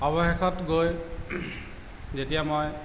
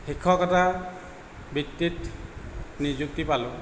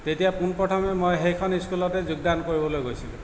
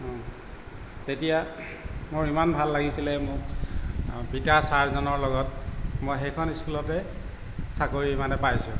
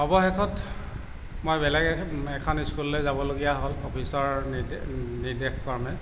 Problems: background sounds at intervals